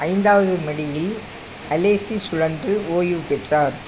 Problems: constant background noise